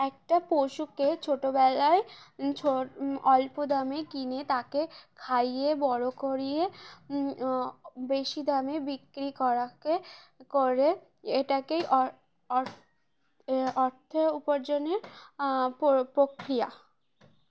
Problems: none marked